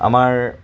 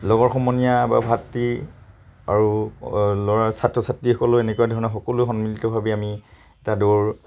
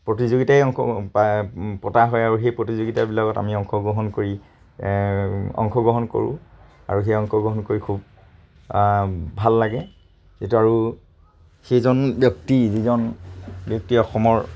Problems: constant background noise